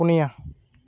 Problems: constant background noise